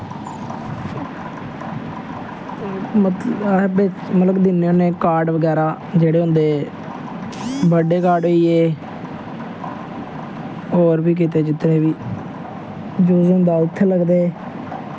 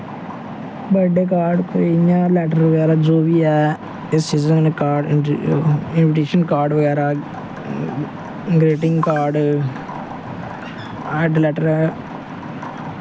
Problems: constant background noise